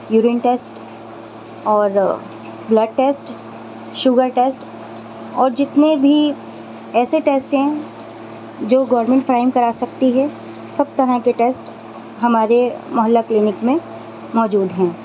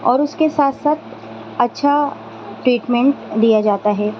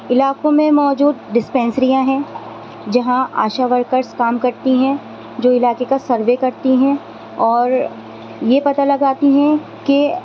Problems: constant background noise